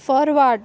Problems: constant background noise